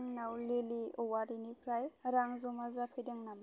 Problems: constant background noise